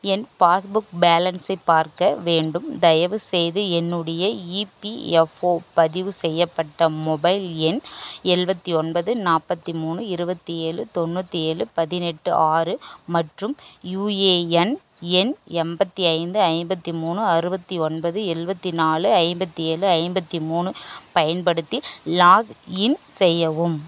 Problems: none marked